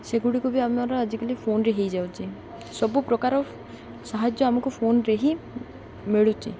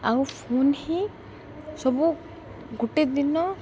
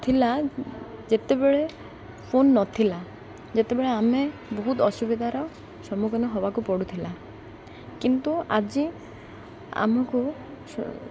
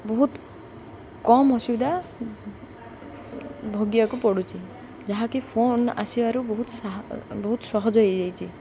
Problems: constant background noise, continuous background conversations